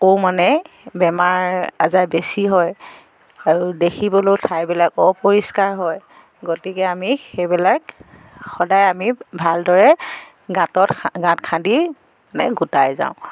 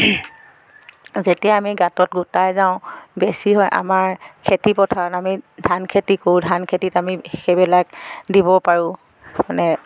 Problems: none marked